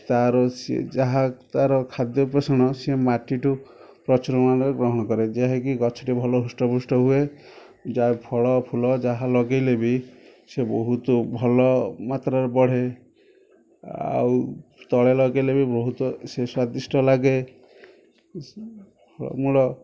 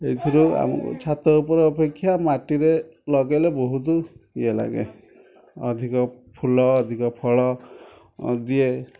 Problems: background sounds at intervals, background conversations at intervals